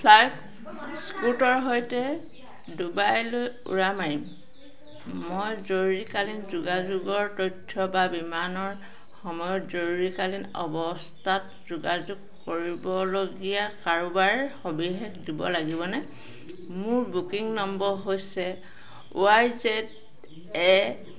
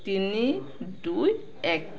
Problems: constant background noise, background conversations at intervals